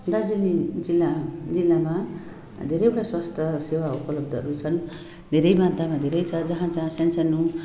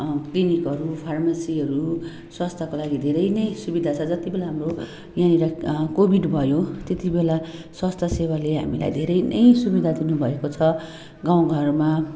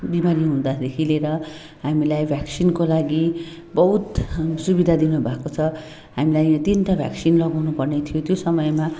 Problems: constant background noise